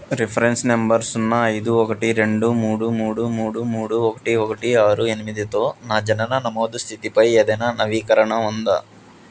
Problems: none marked